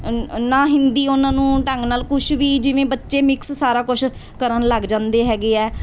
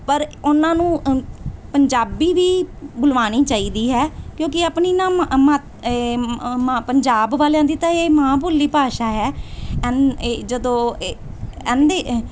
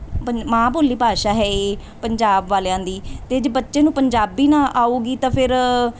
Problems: background conversations at intervals